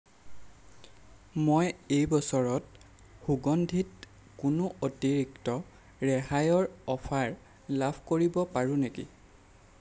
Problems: none marked